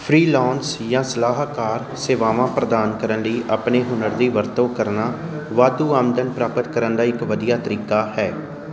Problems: continuous background conversations